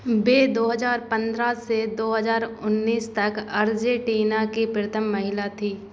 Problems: constant background noise